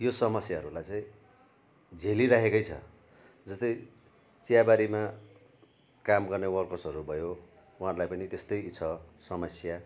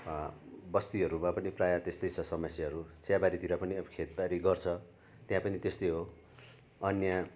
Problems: none marked